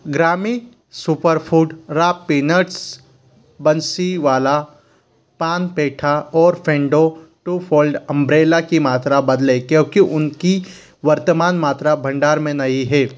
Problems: constant background noise